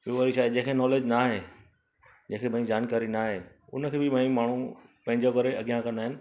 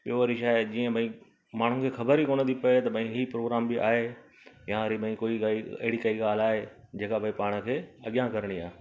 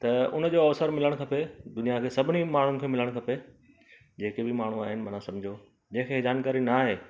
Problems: constant background noise